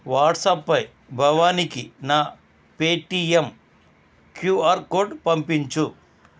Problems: none marked